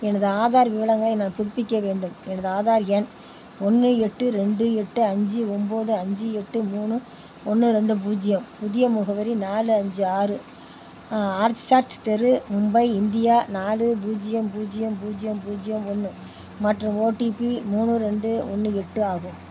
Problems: background sounds at intervals